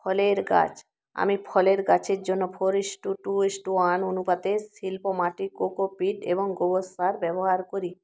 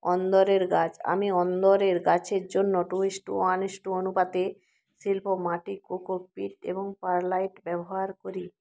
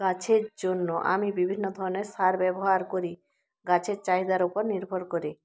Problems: none marked